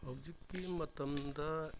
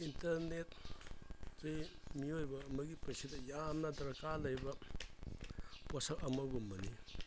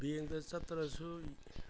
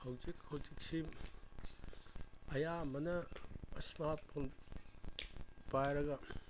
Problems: background sounds at intervals